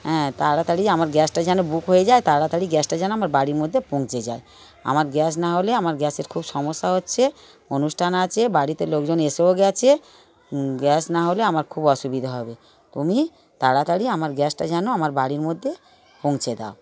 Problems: continuous background conversations